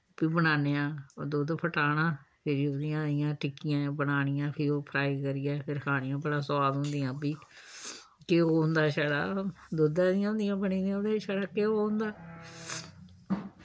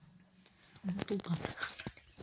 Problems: none marked